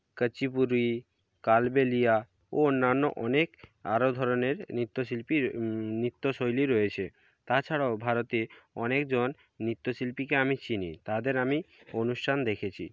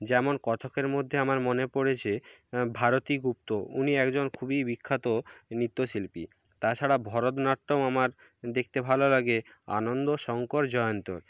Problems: none marked